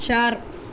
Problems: constant background noise